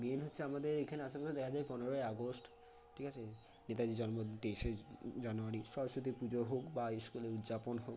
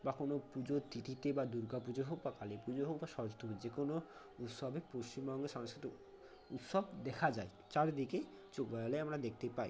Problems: low volume